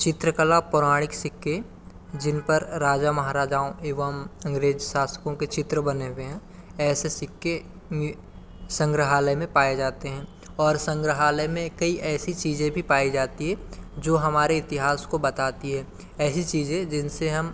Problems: constant background noise, continuous background conversations